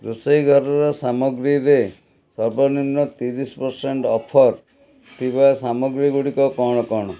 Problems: background sounds at intervals